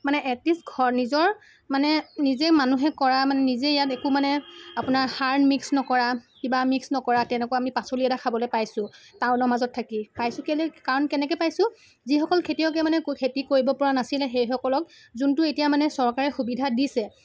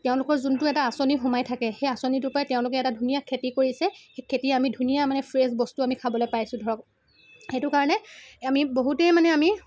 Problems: constant background noise, background conversations at intervals